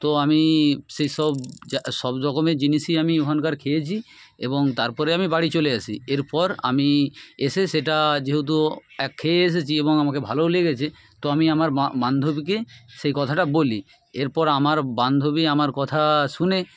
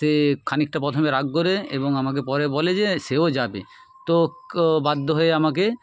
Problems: background sounds at intervals, background conversations at intervals